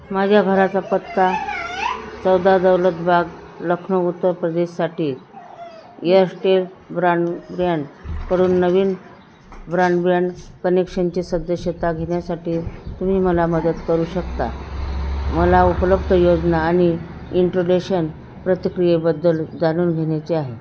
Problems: background sounds at intervals